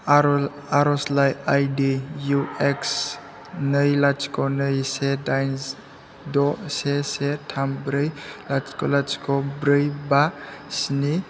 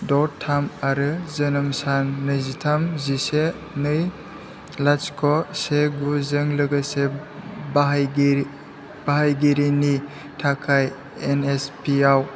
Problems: constant background noise